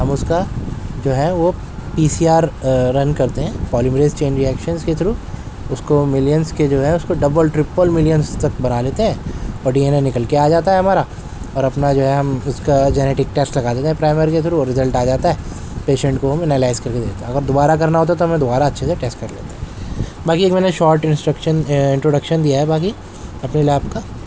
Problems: background sounds at intervals